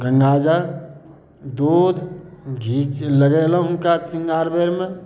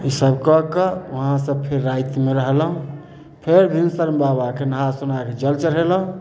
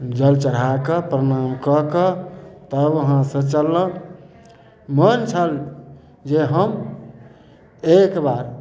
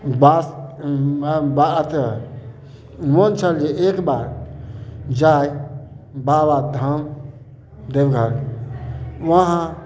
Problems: none marked